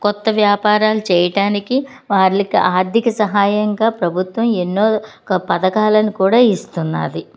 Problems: none marked